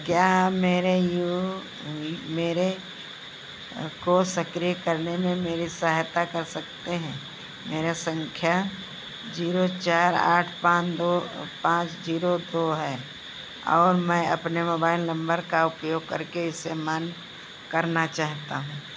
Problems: none marked